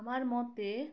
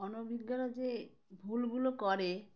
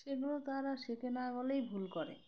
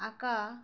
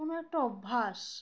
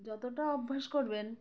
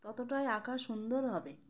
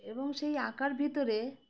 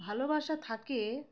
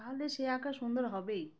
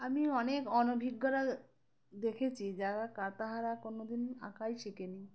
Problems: background sounds at intervals